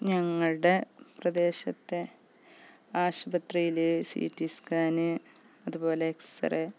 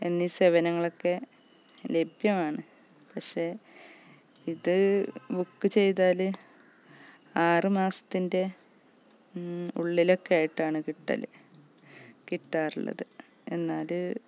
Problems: background sounds at intervals, low volume